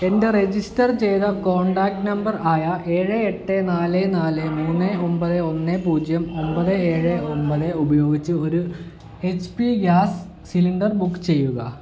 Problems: none marked